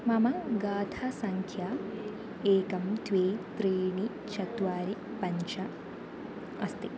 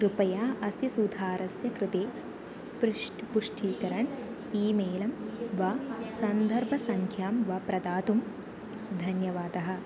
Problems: constant background noise